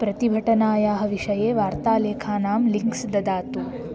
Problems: constant background noise